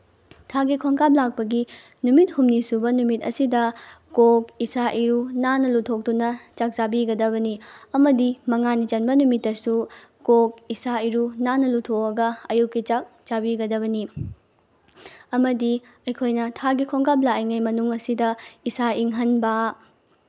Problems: background sounds at intervals